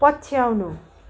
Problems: constant background noise